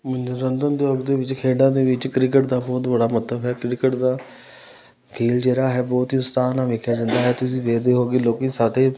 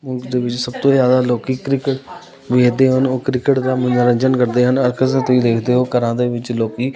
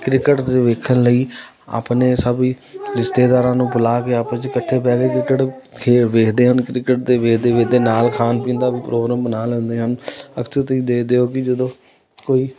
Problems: continuous background conversations